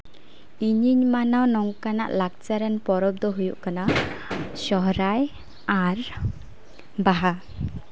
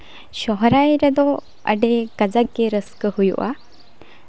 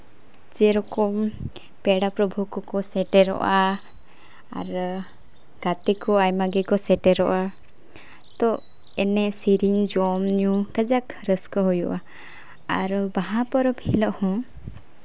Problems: none marked